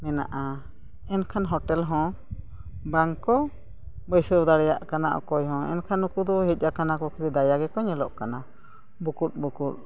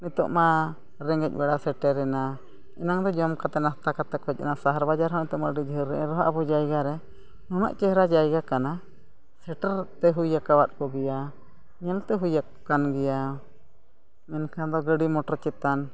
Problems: none marked